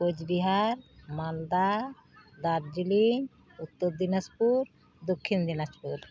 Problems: none marked